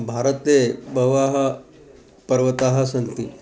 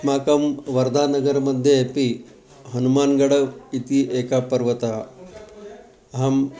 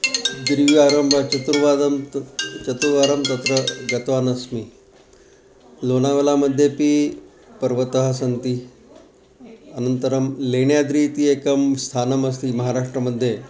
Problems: background sounds at intervals